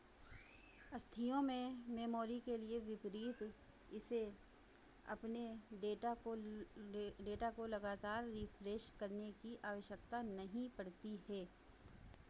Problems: constant background noise